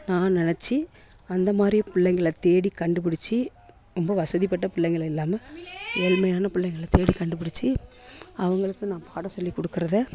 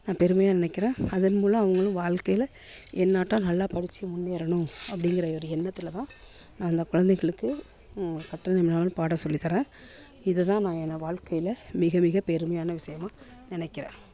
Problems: continuous background conversations